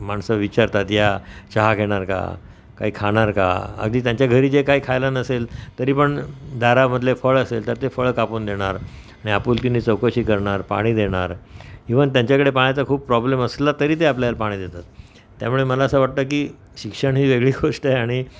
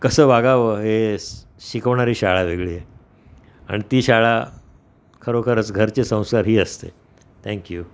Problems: constant background noise